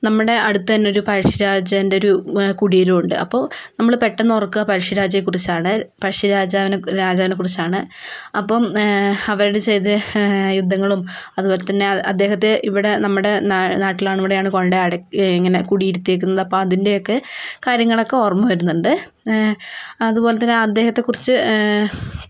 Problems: background sounds at intervals, low volume